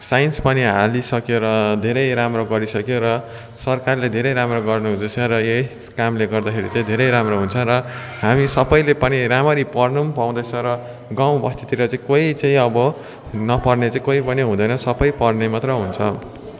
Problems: constant background noise, continuous background conversations